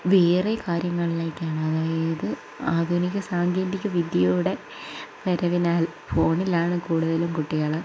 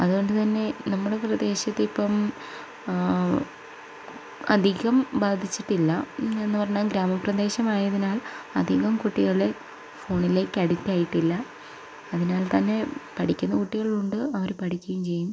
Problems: low volume